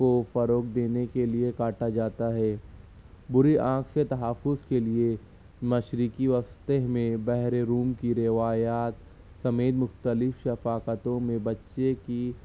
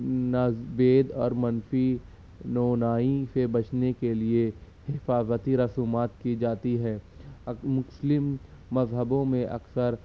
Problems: constant background noise